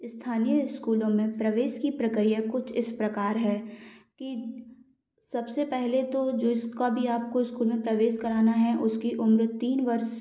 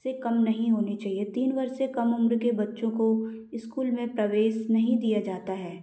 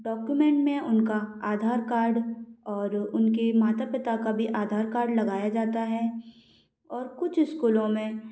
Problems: background sounds at intervals